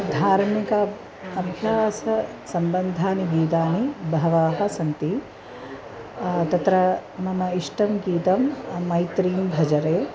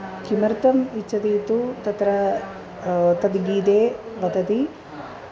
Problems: constant background noise, continuous background conversations